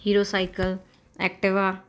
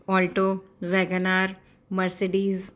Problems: constant background noise